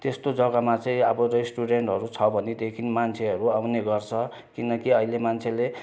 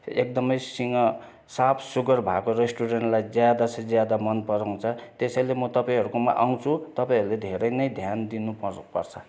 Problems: constant background noise, continuous background conversations